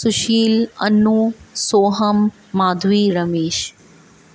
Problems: none marked